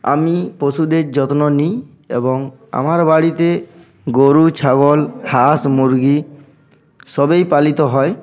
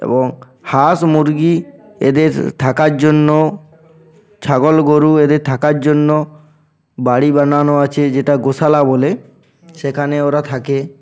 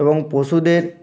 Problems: background sounds at intervals